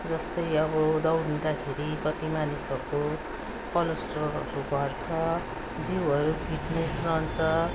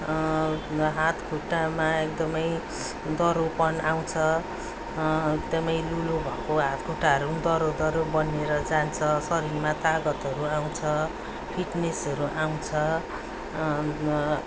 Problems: none marked